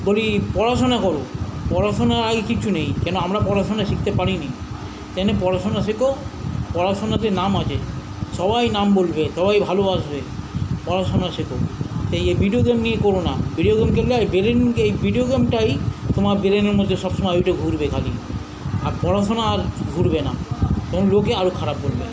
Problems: none marked